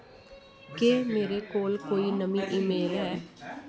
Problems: constant background noise